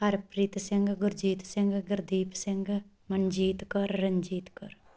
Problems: none marked